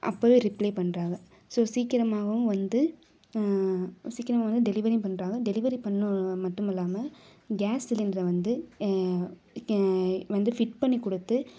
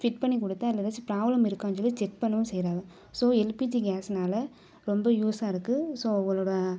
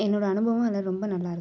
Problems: none marked